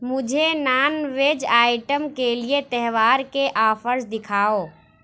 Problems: none marked